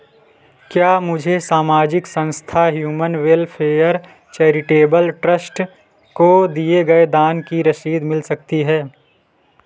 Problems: none marked